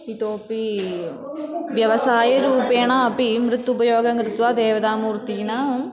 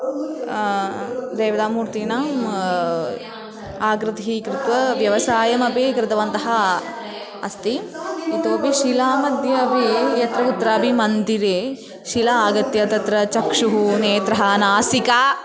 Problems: none marked